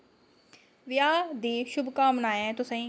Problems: low volume